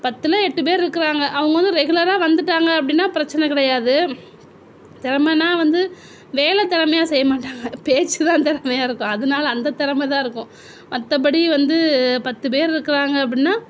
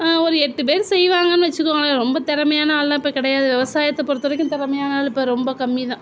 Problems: constant background noise